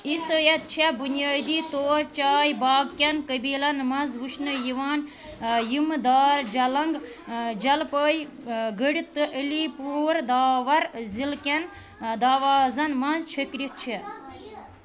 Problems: constant background noise